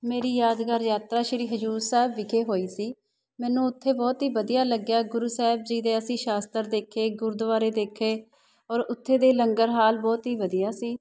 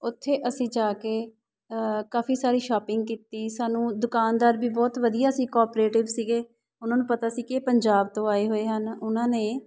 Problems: background sounds at intervals, background conversations at intervals